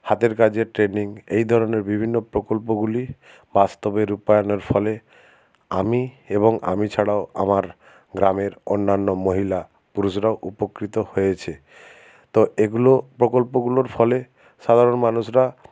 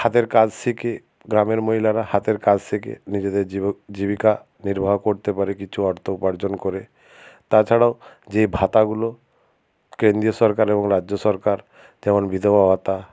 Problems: none marked